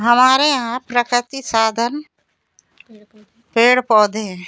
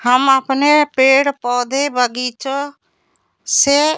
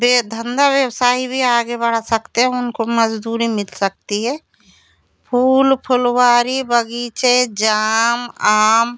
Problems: constant background noise, background conversations at intervals